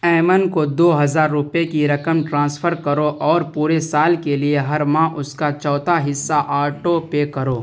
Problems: none marked